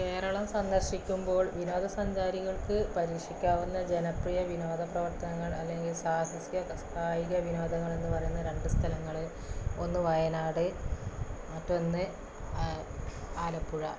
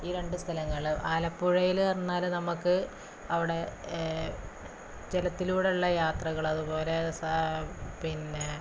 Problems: constant background noise, low volume